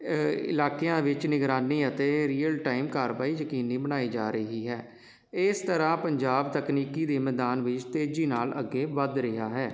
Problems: constant background noise